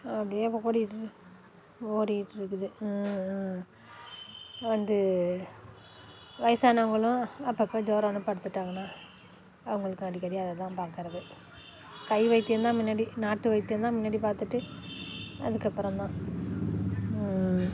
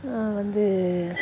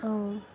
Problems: constant background noise